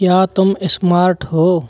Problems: none marked